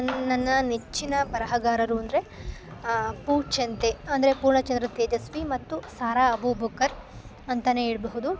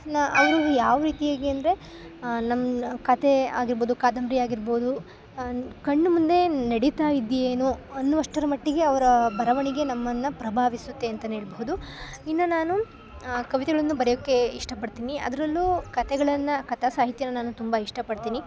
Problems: background sounds at intervals